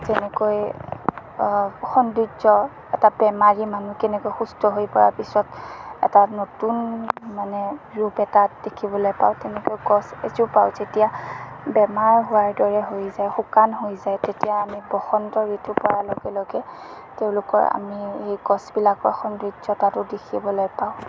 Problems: constant background noise